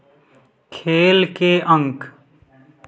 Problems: none marked